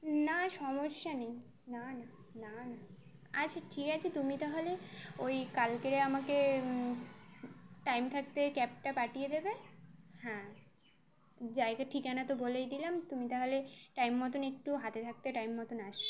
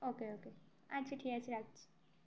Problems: constant background noise